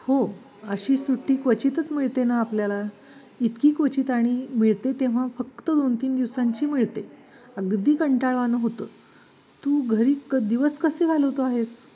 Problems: none marked